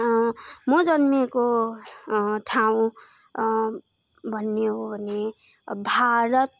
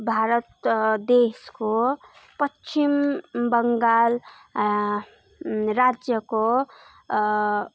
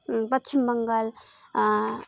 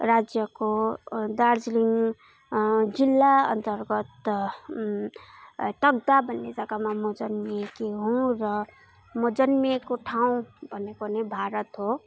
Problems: none marked